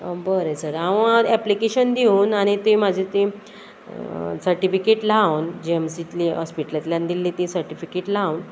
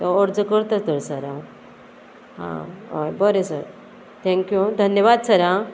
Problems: constant background noise